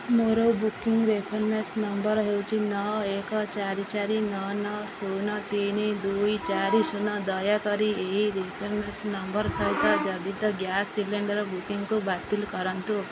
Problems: constant background noise